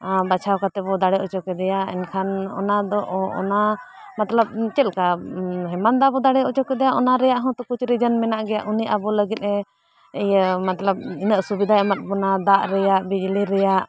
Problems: background conversations at intervals